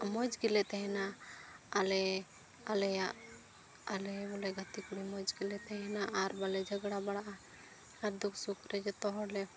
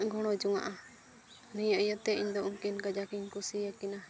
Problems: constant background noise